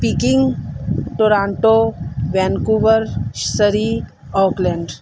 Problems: none marked